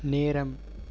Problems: none marked